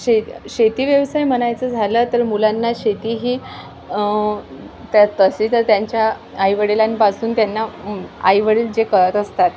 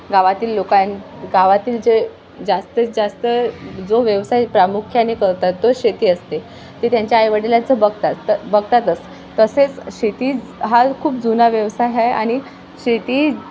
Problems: constant background noise